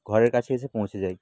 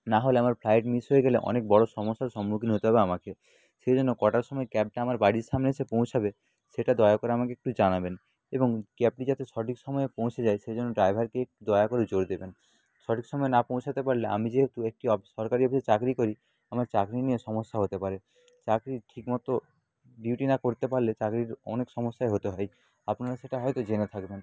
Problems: background sounds at intervals, low volume